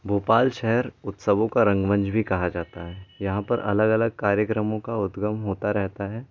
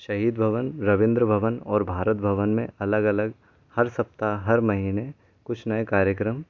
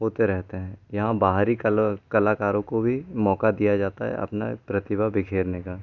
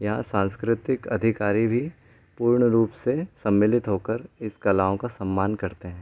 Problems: constant background noise